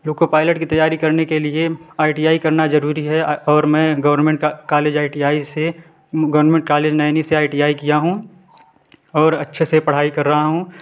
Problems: background sounds at intervals